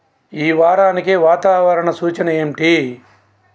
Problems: constant background noise, background conversations at intervals